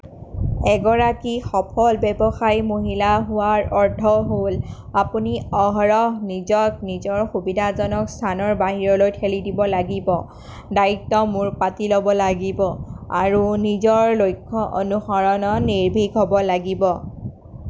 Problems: none marked